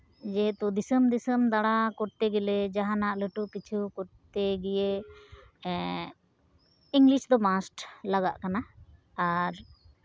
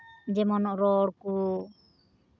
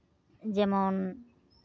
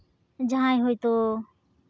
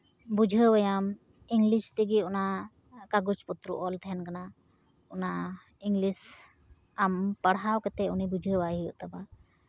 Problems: none marked